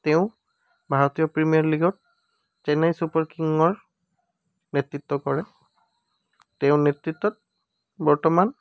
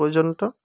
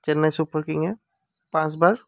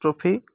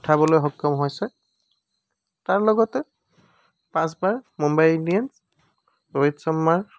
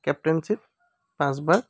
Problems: none marked